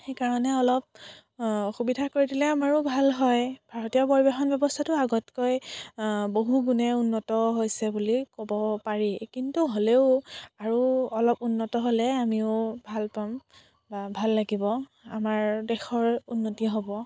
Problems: none marked